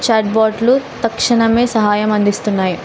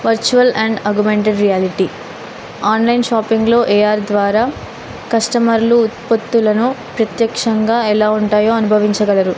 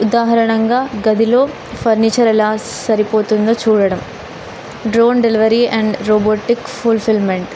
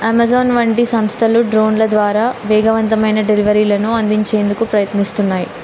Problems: constant background noise